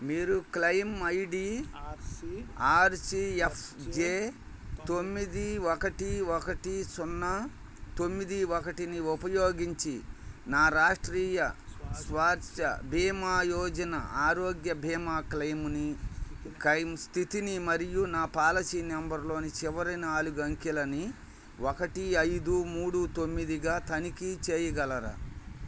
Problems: background conversations at intervals